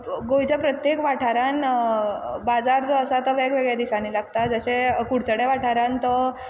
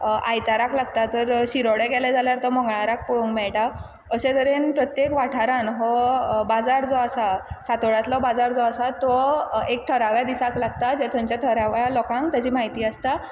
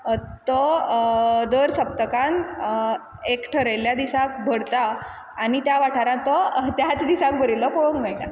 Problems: none marked